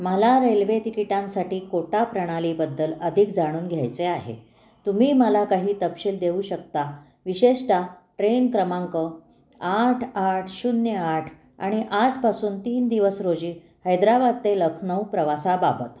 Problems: constant background noise, background conversations at intervals